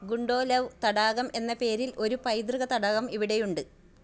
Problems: low volume